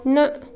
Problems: none marked